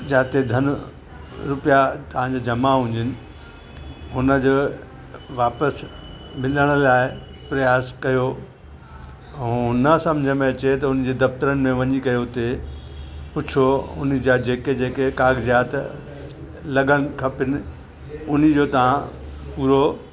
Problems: constant background noise